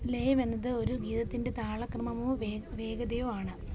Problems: constant background noise, low volume